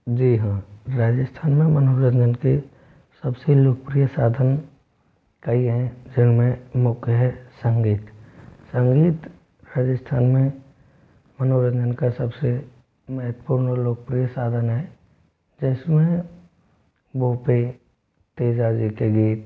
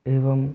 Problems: constant background noise